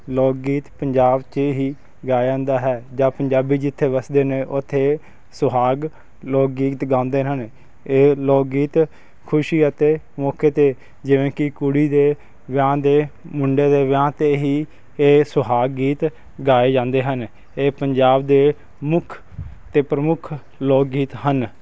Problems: constant background noise